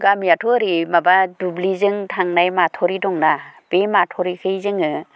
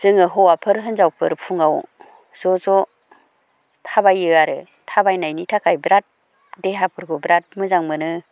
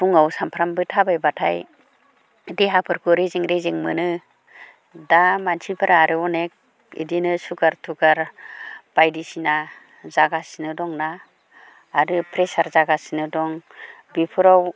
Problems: constant background noise